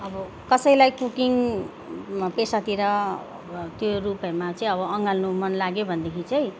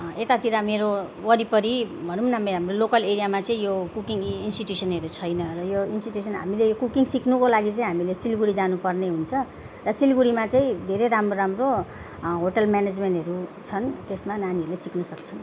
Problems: none marked